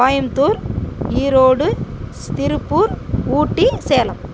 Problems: background sounds at intervals